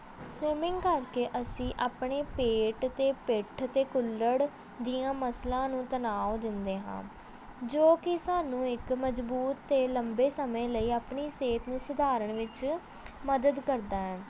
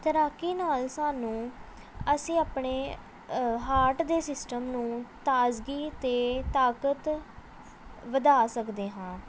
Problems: background sounds at intervals